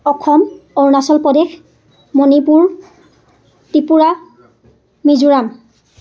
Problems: constant background noise, background conversations at intervals